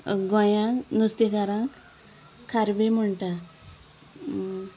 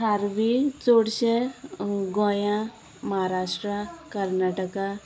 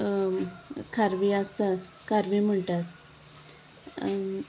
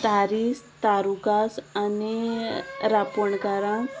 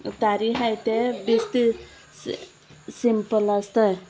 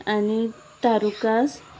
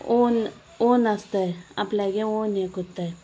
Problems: constant background noise